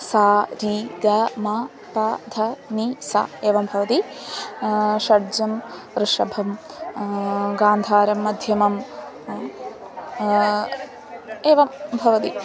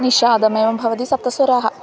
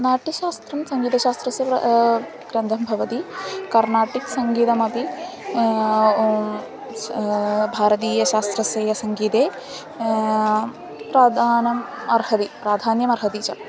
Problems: constant background noise, continuous background conversations